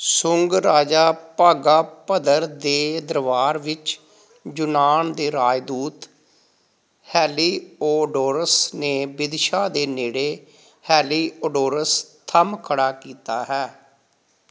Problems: background sounds at intervals